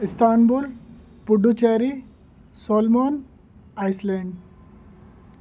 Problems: background sounds at intervals